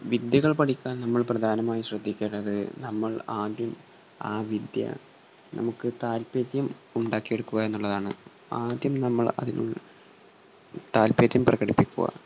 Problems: none marked